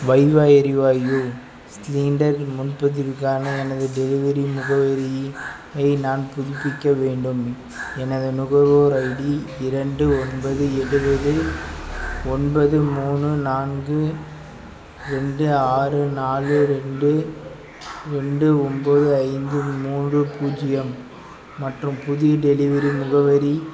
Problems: none marked